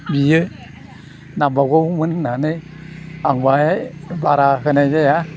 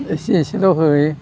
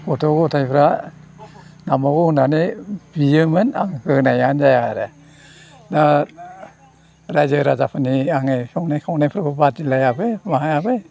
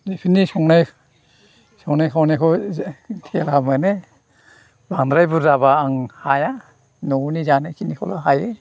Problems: constant background noise